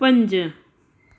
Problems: constant background noise, echo